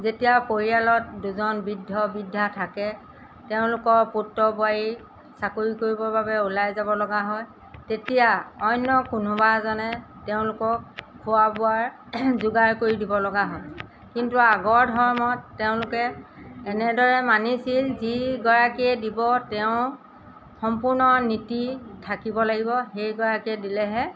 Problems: background sounds at intervals